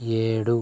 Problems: none marked